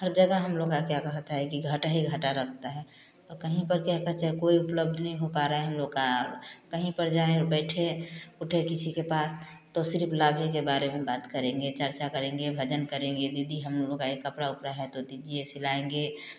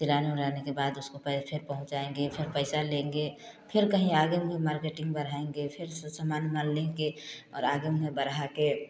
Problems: constant background noise, continuous background conversations